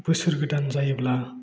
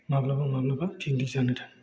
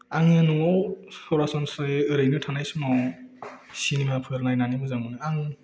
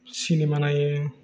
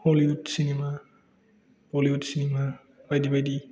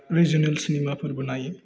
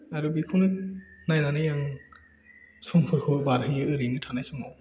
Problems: none marked